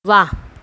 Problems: none marked